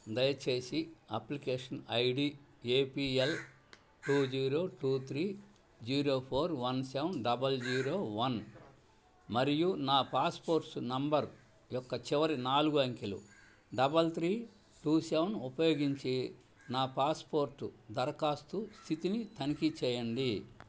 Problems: low volume